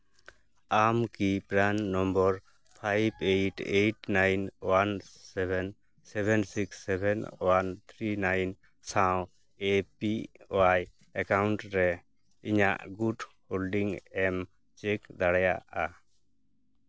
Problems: background sounds at intervals